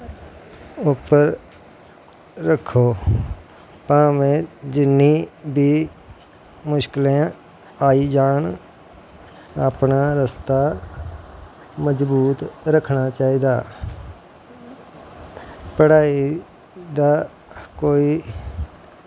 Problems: constant background noise